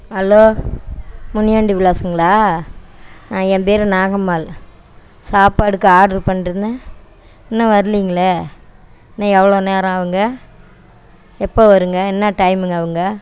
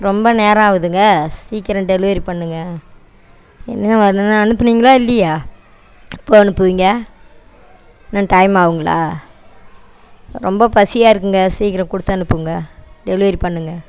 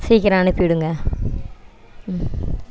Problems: background sounds at intervals